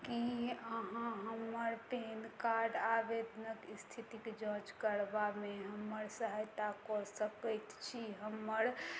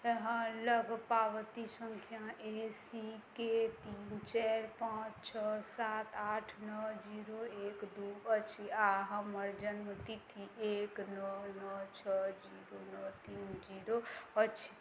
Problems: none marked